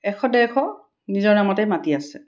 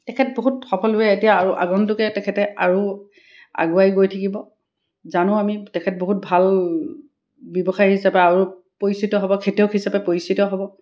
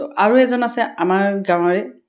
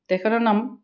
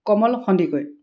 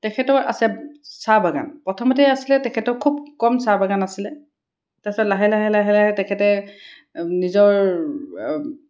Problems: none marked